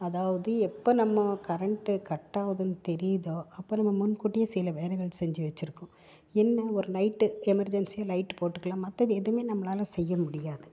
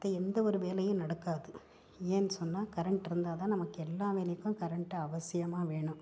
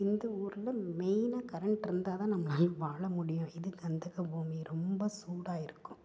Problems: low volume